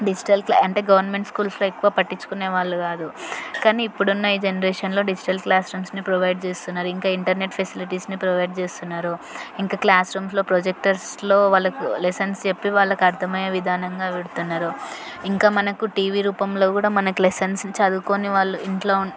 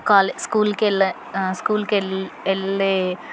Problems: constant background noise, continuous background conversations